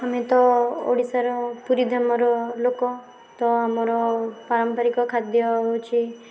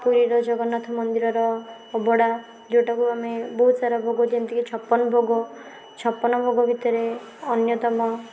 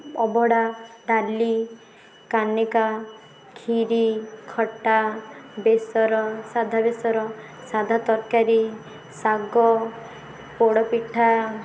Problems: constant background noise, background conversations at intervals